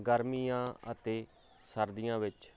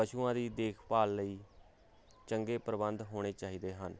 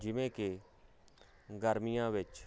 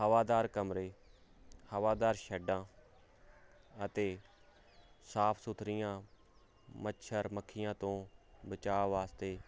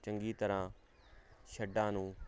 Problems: none marked